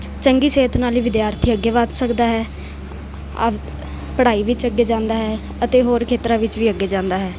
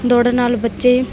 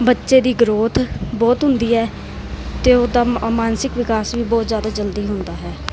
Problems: none marked